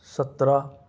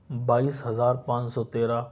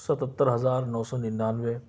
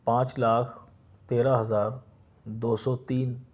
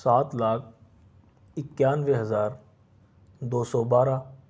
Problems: none marked